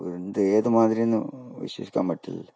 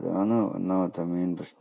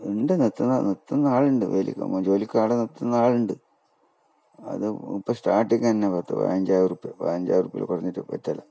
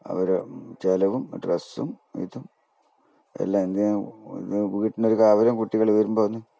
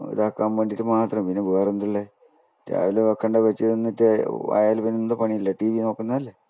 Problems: none marked